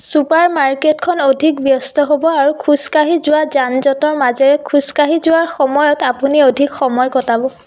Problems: background sounds at intervals